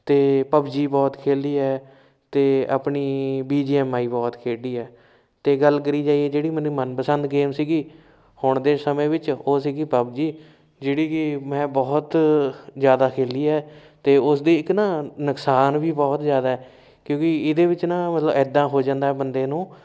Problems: none marked